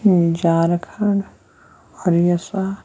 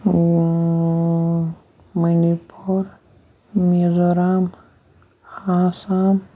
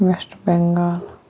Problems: background sounds at intervals